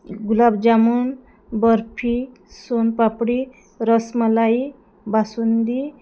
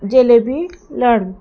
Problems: none marked